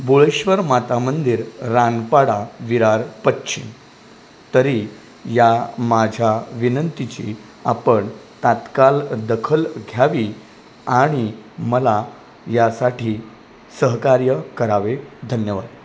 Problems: constant background noise